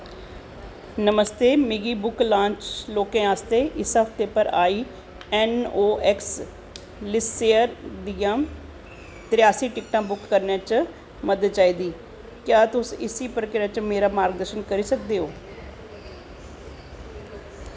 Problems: constant background noise